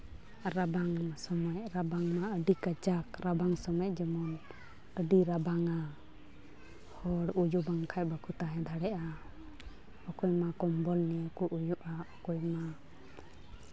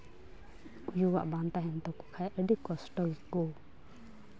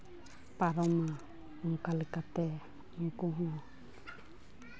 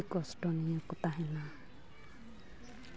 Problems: background sounds at intervals, background conversations at intervals